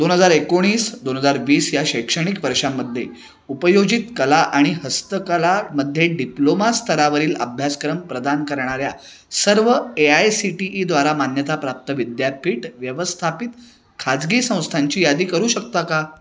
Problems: none marked